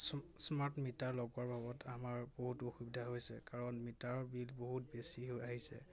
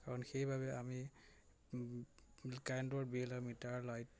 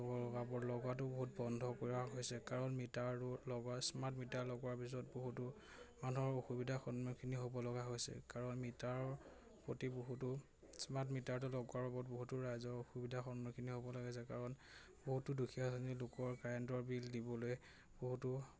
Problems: constant background noise, background conversations at intervals